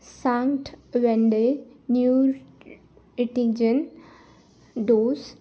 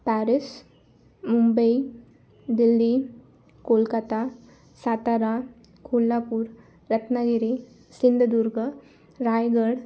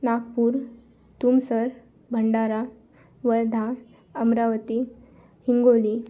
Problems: constant background noise, continuous background conversations